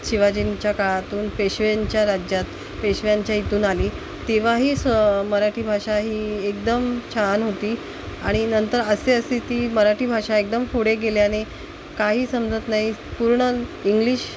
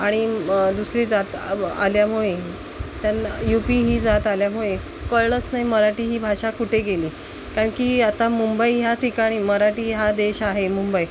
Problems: constant background noise, background conversations at intervals